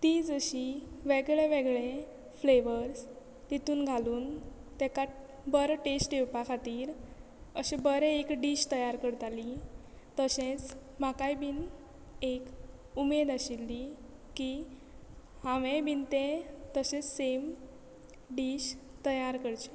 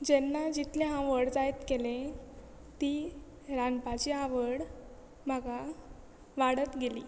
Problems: background sounds at intervals